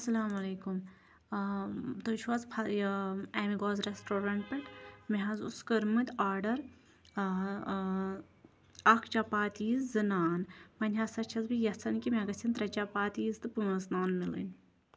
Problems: none marked